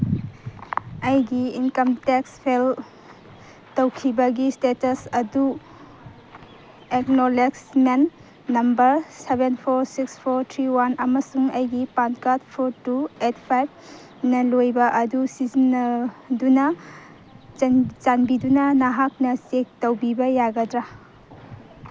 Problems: none marked